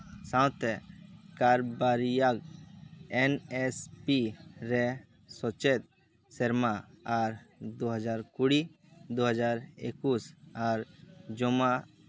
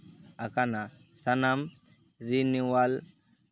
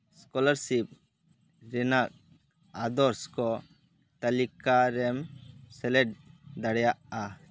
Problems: constant background noise